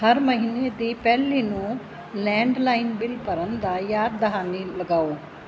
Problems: constant background noise